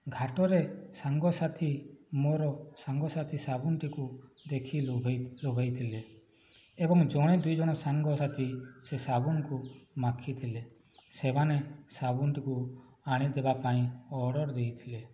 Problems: background sounds at intervals, low volume